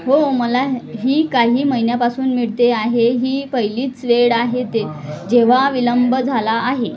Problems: continuous background conversations